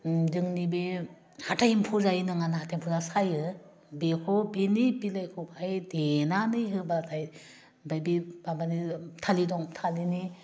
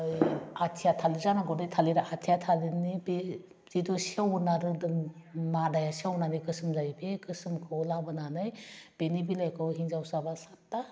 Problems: constant background noise